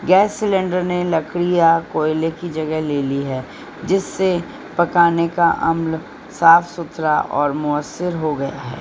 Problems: constant background noise